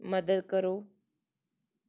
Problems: background sounds at intervals